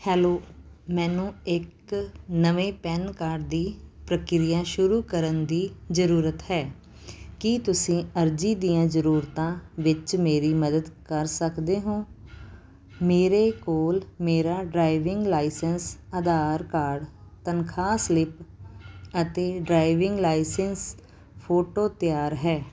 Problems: background sounds at intervals